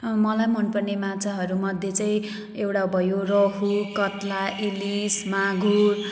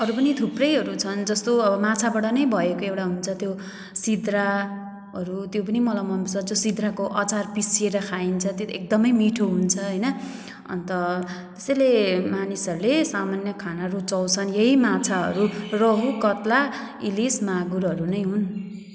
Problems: background sounds at intervals